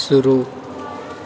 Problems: background sounds at intervals